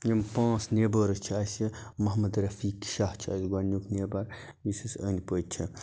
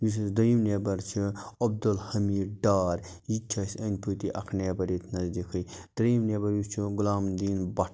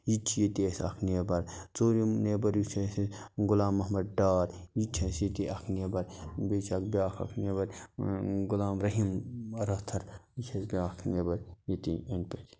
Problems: constant background noise